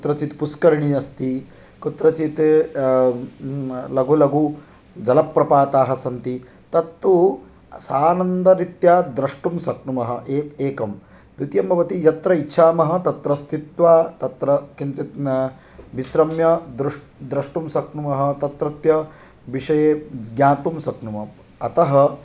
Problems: none marked